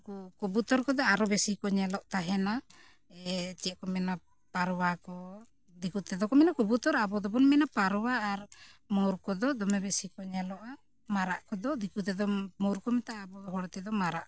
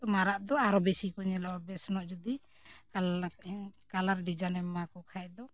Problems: background sounds at intervals